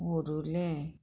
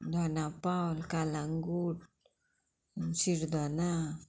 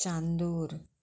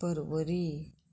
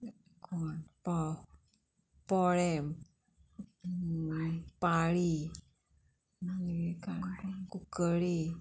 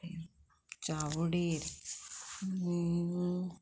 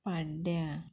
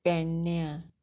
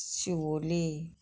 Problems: none marked